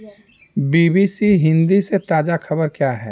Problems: none marked